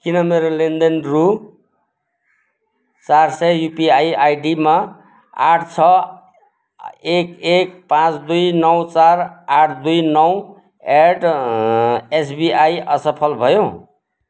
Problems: constant background noise